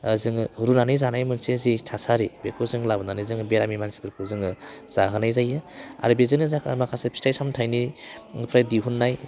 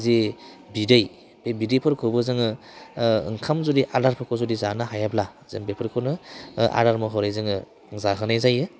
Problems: constant background noise